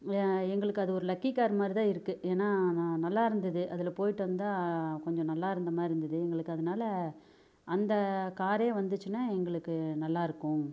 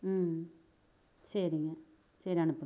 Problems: none marked